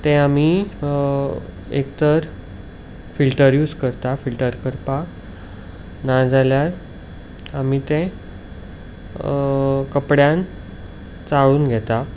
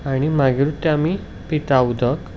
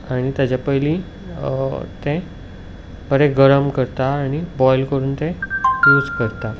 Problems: background sounds at intervals